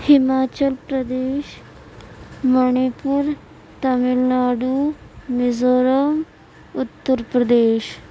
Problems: none marked